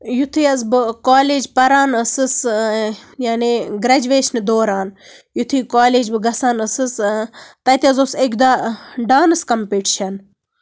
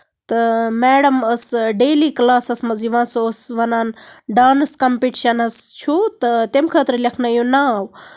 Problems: none marked